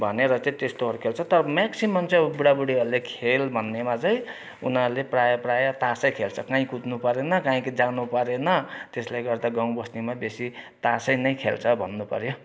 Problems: none marked